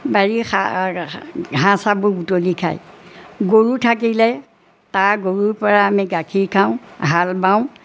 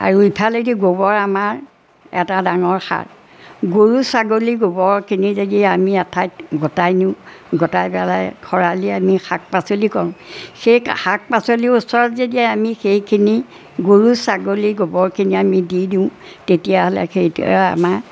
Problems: none marked